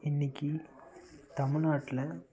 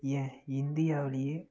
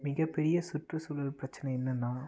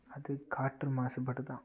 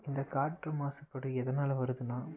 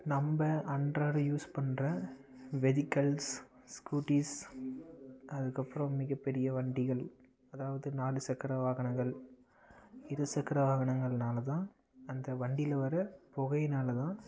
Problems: none marked